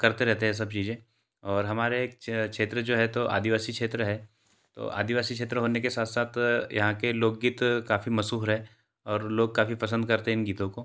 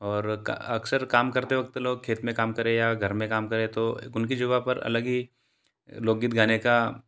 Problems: constant background noise